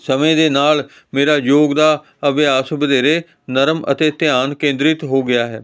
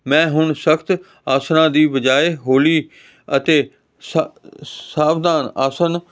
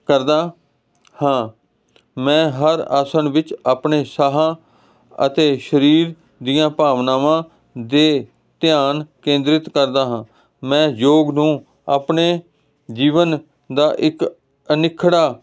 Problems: constant background noise